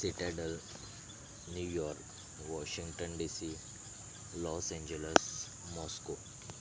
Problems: background sounds at intervals